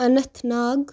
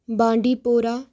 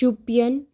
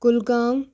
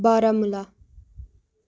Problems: none marked